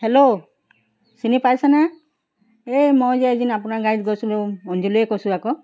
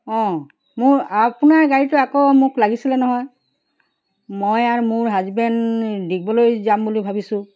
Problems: background sounds at intervals